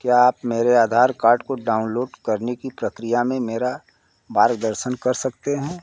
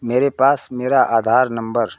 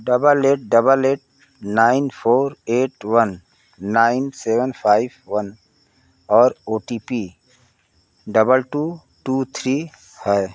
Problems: none marked